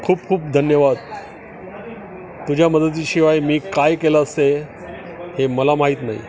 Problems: constant background noise, continuous background conversations